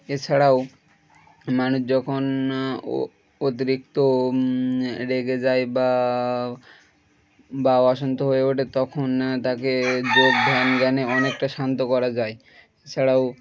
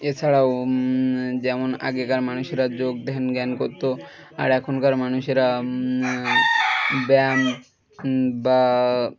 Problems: background sounds at intervals